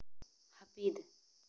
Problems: low volume